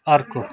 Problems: background sounds at intervals